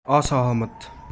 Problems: none marked